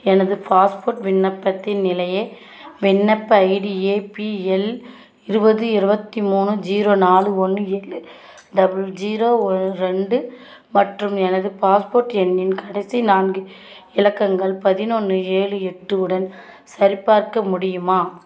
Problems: constant background noise